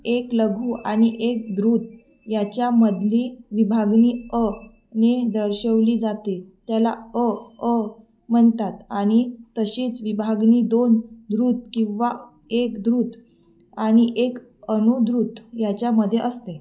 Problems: none marked